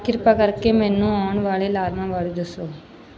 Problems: none marked